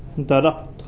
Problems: none marked